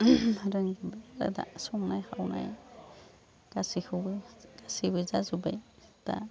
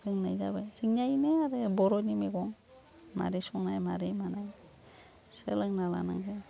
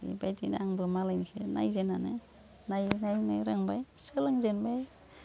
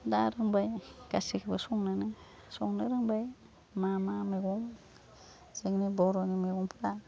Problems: none marked